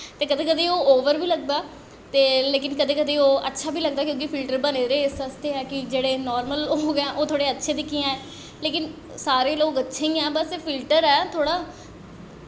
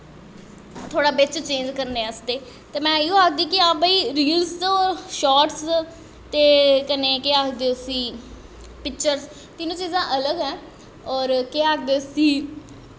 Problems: echo